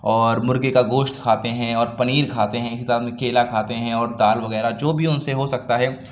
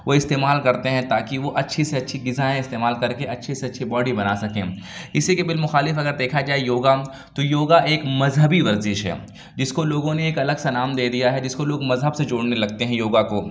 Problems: none marked